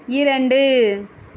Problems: none marked